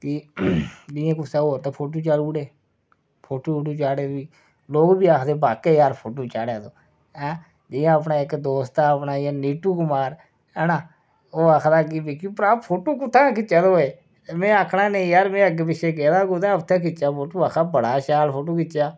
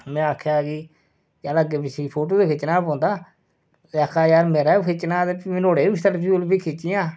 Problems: none marked